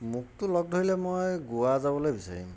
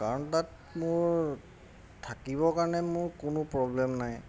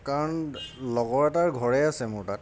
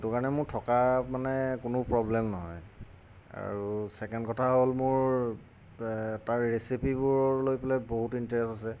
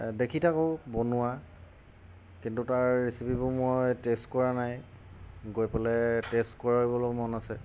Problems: none marked